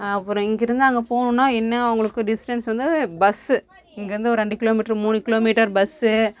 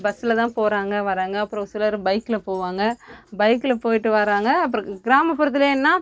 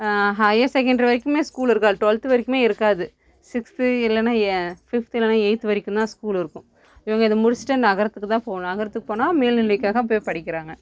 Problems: constant background noise